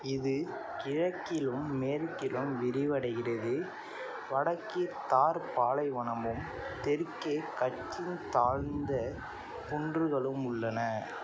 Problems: constant background noise